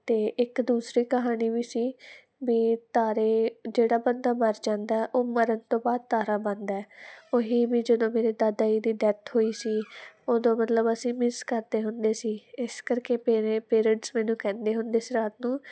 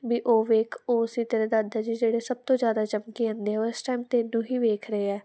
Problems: none marked